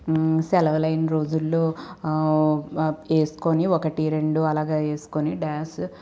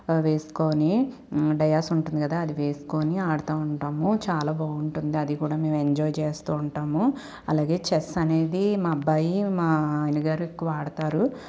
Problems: constant background noise